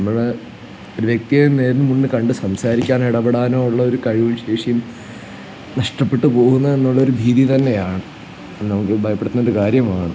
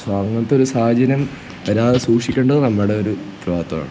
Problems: constant background noise